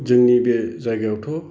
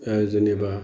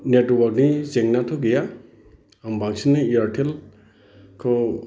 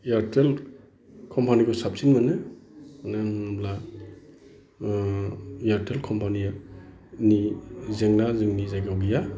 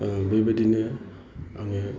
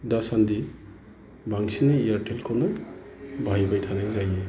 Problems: constant background noise